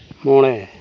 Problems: constant background noise